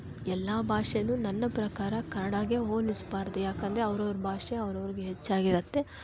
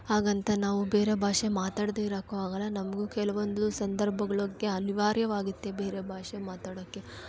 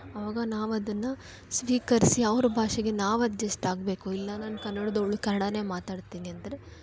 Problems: background sounds at intervals, background conversations at intervals